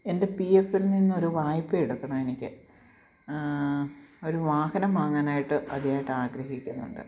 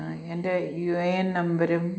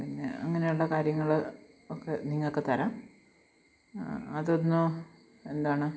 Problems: background sounds at intervals